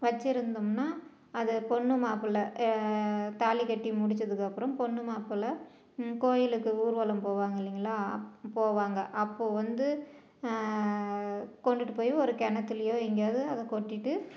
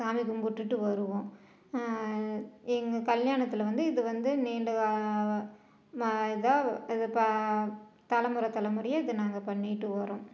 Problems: none marked